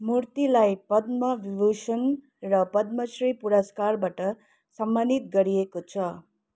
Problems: none marked